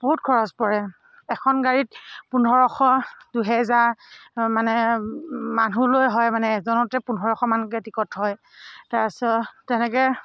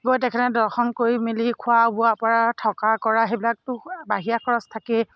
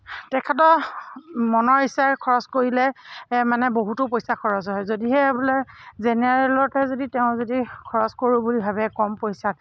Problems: none marked